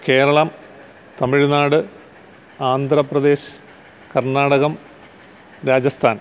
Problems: constant background noise